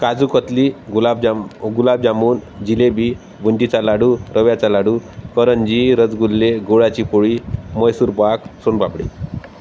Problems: constant background noise